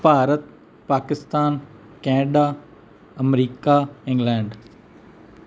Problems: none marked